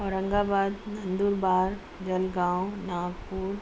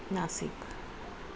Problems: none marked